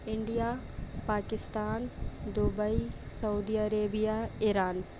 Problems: constant background noise, low volume